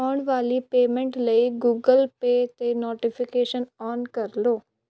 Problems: background sounds at intervals